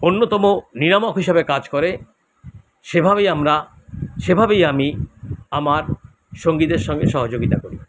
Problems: constant background noise